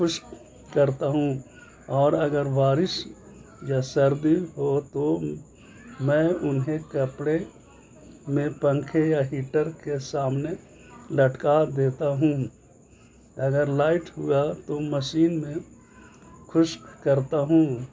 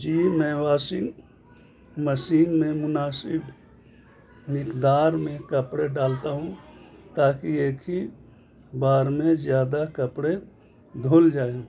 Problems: constant background noise